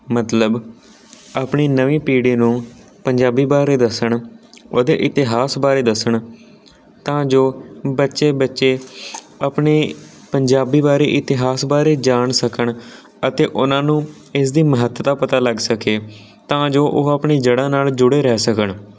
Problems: background sounds at intervals